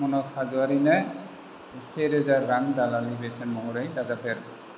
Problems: constant background noise